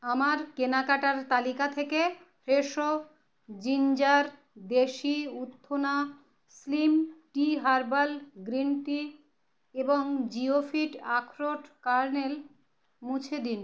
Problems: none marked